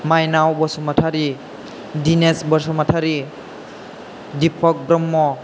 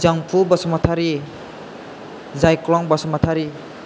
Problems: none marked